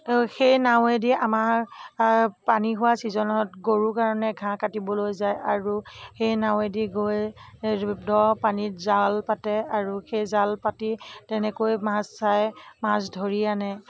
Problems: none marked